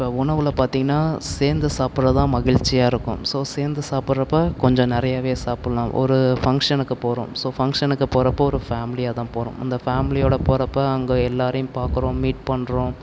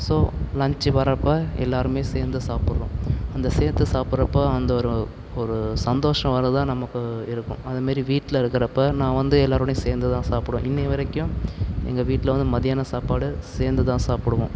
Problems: none marked